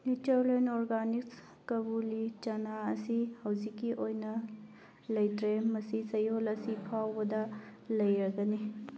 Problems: background conversations at intervals